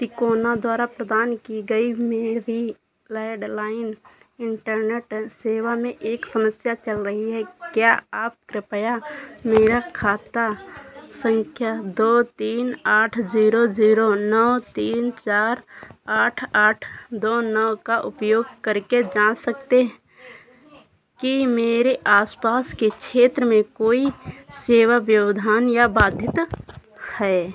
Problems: constant background noise